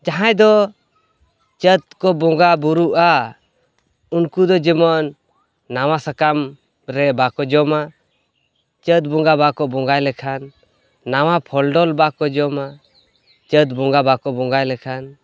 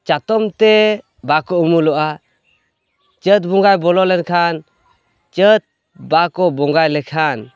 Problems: constant background noise, background conversations at intervals